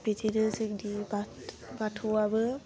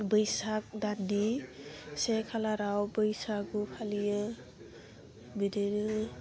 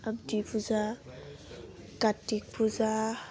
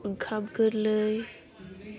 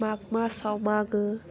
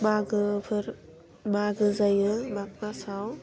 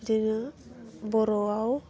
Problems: constant background noise